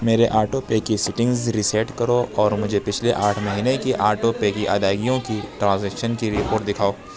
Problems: constant background noise